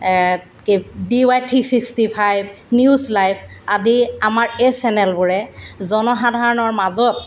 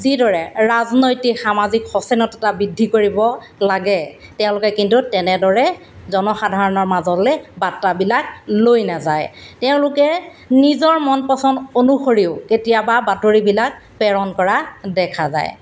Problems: background sounds at intervals